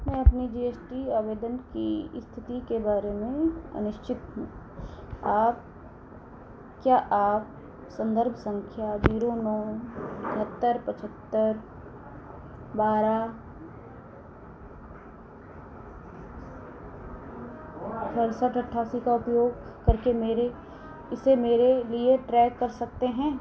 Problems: none marked